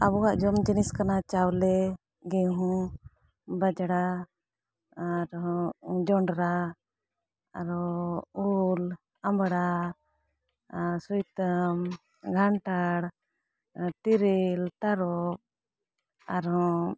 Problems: none marked